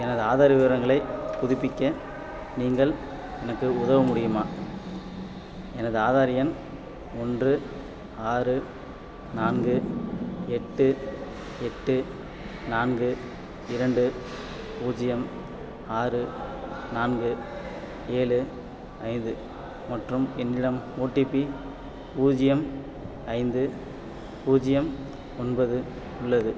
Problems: constant background noise